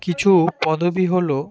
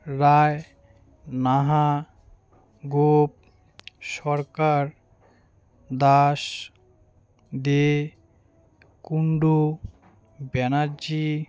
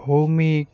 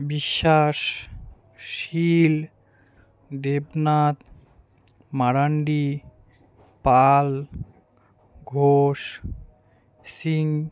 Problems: background sounds at intervals